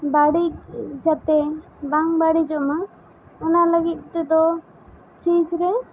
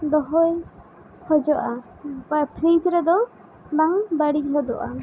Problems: constant background noise